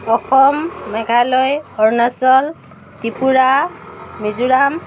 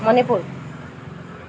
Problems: none marked